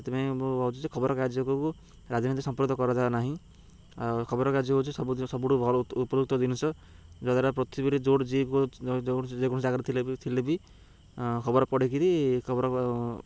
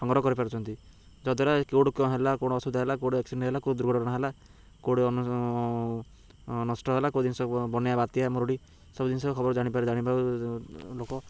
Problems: background sounds at intervals